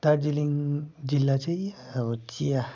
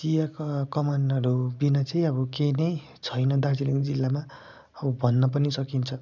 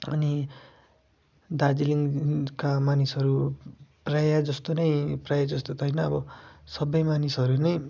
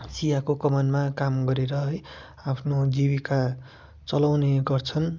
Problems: background sounds at intervals